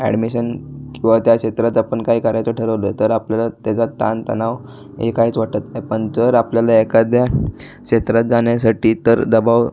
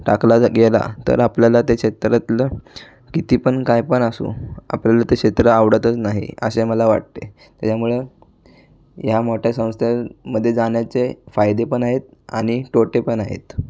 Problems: constant background noise, background conversations at intervals